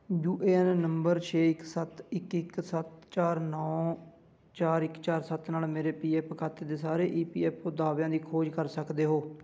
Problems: background sounds at intervals